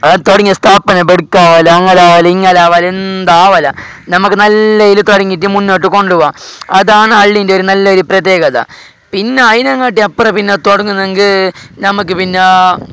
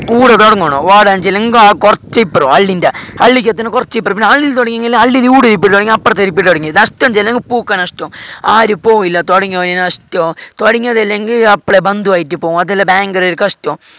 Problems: background sounds at intervals